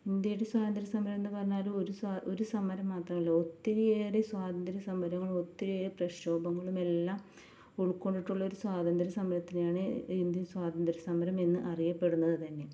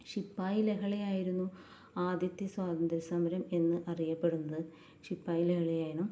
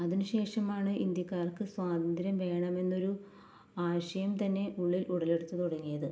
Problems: low volume